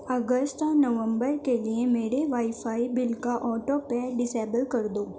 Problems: background sounds at intervals